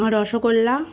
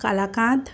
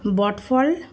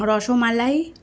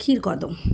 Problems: constant background noise